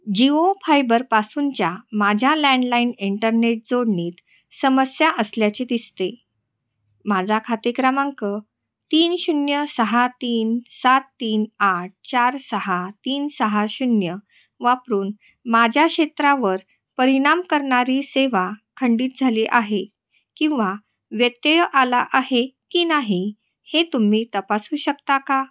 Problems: constant background noise, echo